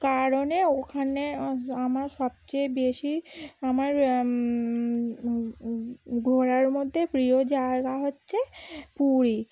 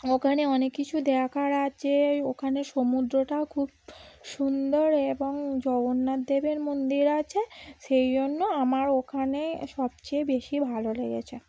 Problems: background sounds at intervals